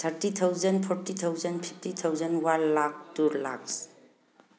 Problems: background conversations at intervals